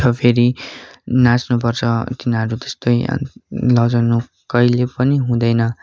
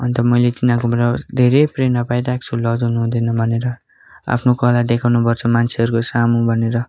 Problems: continuous background conversations